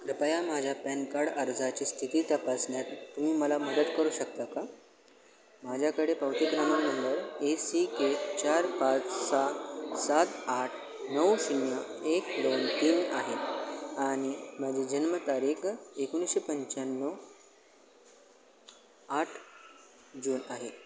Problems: constant background noise, continuous background conversations